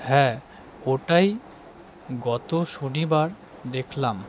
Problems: constant background noise